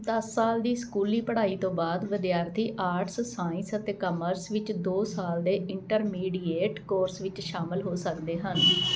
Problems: constant background noise